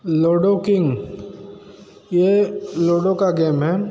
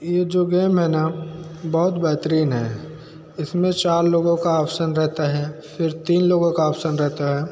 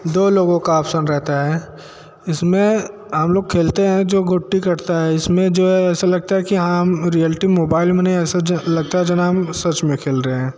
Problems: none marked